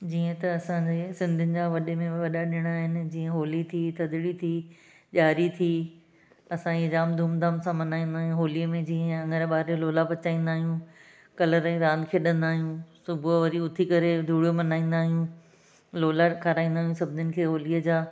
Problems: none marked